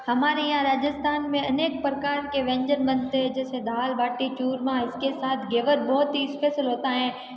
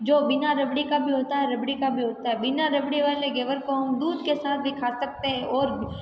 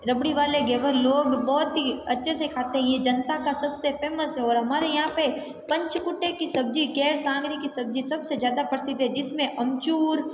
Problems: background conversations at intervals